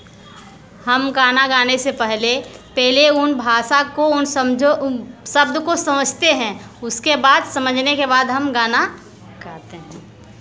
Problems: constant background noise